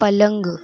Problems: none marked